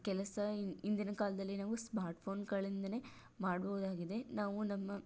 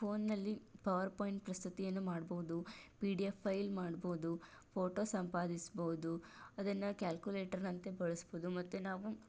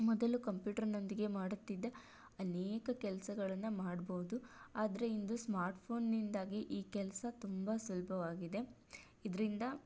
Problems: none marked